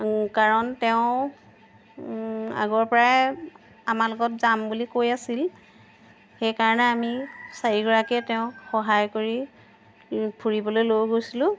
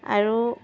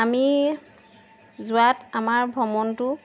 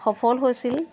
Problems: background sounds at intervals